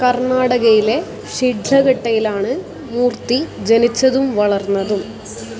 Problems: constant background noise